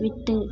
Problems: constant background noise